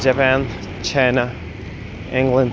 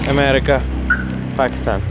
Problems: constant background noise